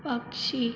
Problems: constant background noise, low volume